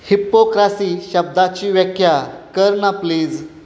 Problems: constant background noise